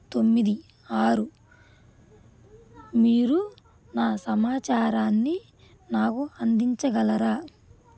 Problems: constant background noise